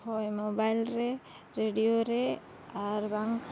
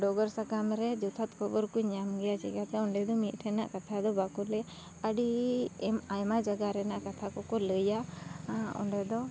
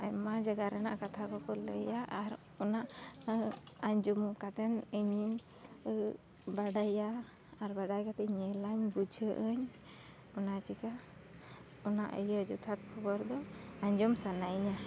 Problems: constant background noise